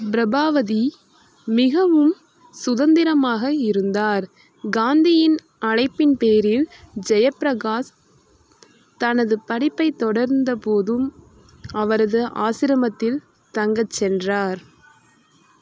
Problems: constant background noise